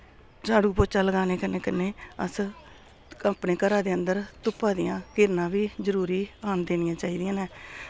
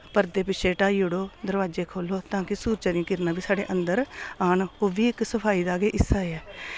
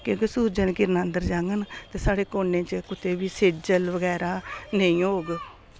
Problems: none marked